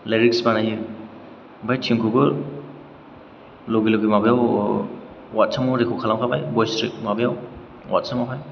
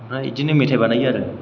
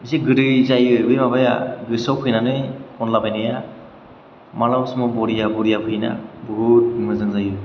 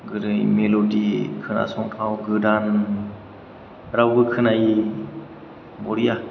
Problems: background sounds at intervals